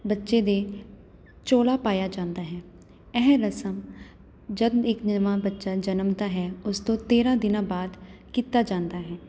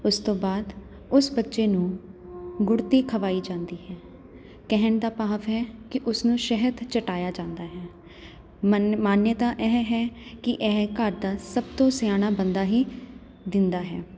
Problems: constant background noise